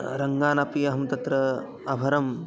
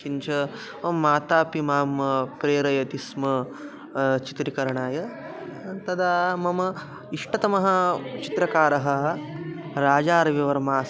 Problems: continuous background conversations